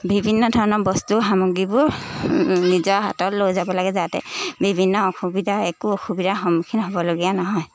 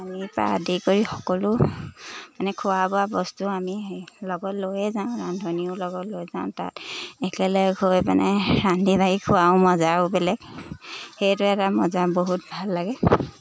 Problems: constant background noise